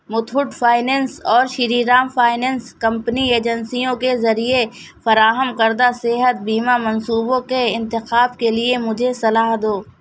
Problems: background sounds at intervals